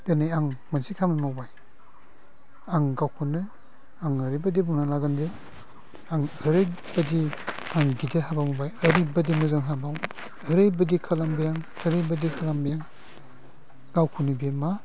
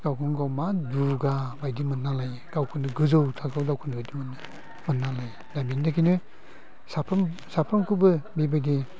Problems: low volume